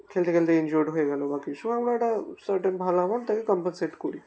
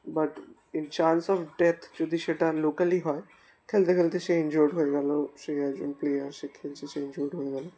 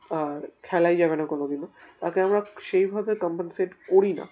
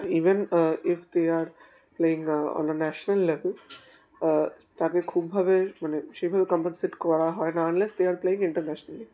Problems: constant background noise